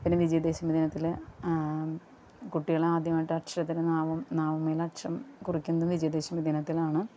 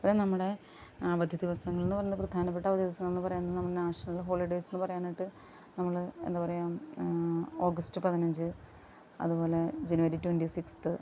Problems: background sounds at intervals, low volume